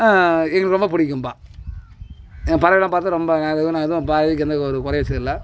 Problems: constant background noise, background conversations at intervals